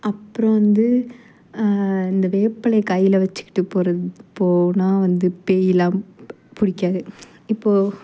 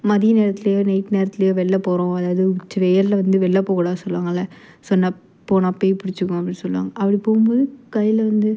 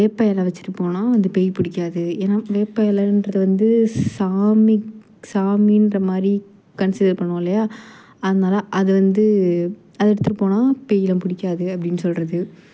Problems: none marked